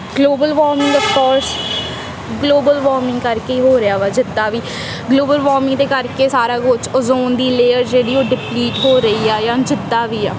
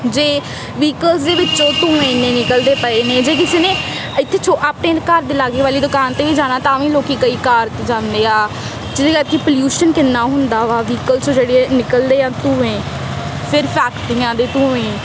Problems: constant background noise